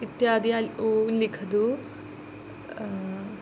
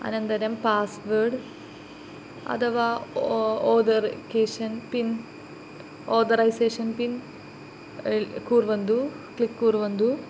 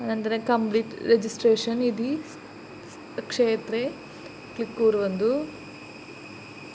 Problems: none marked